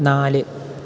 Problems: none marked